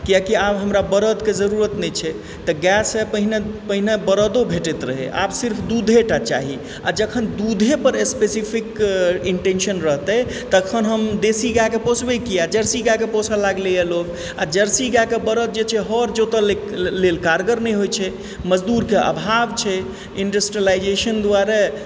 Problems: constant background noise